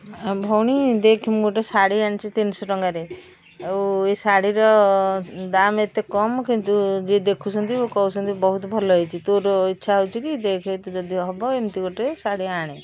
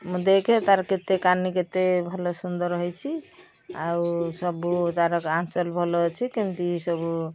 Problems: constant background noise